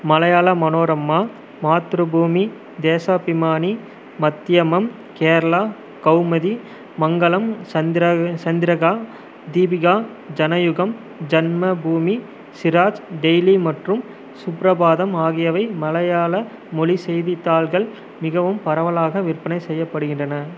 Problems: none marked